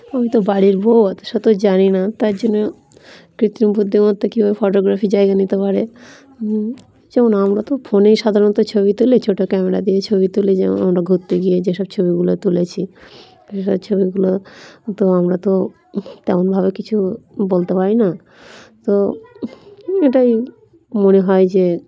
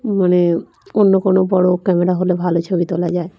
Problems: continuous background conversations